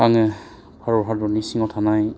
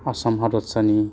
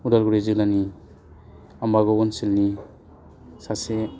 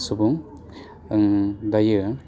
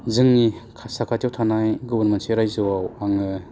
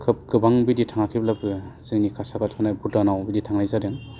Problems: constant background noise